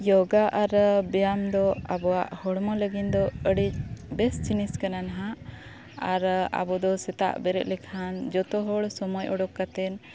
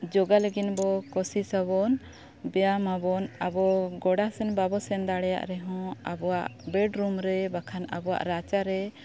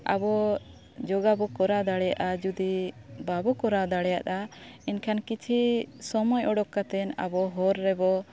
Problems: constant background noise